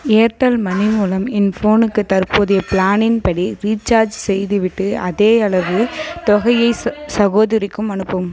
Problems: background sounds at intervals